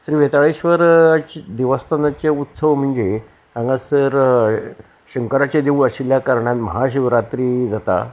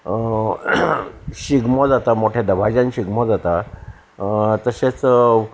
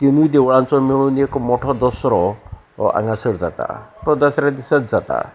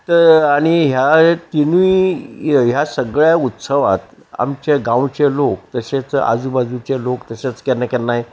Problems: none marked